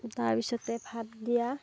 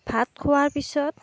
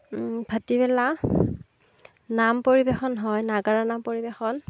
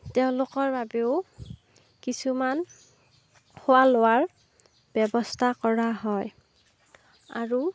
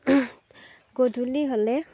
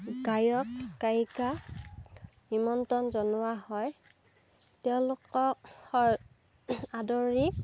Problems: background sounds at intervals, background conversations at intervals